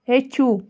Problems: background sounds at intervals